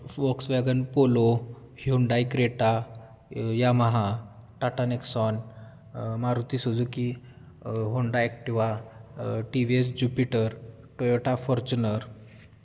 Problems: background sounds at intervals